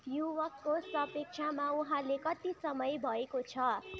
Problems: continuous background conversations